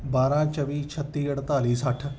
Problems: background sounds at intervals